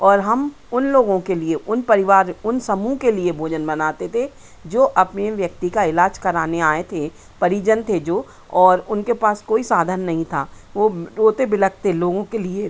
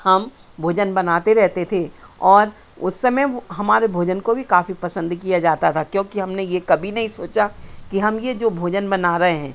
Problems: constant background noise